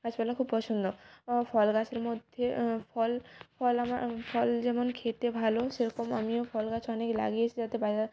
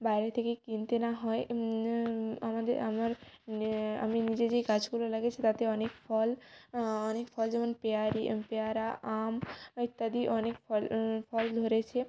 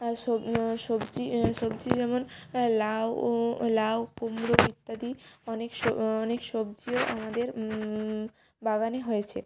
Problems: background sounds at intervals